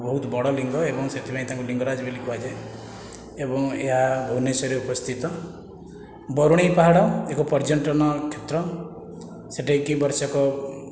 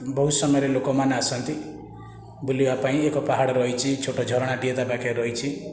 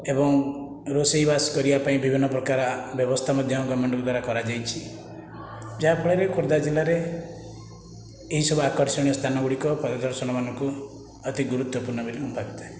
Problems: constant background noise